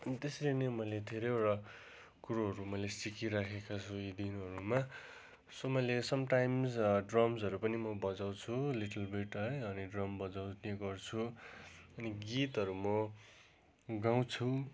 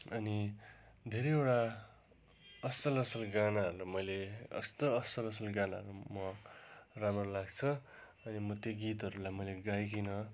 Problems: constant background noise